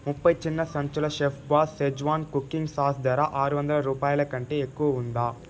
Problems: constant background noise